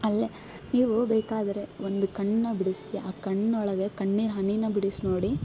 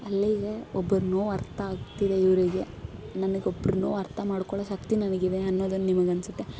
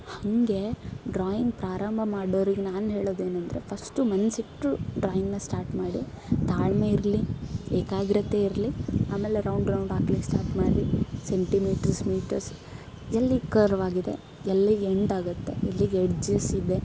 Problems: background sounds at intervals